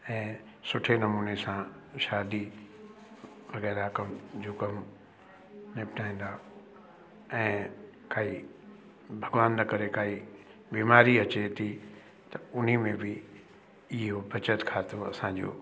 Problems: constant background noise, echo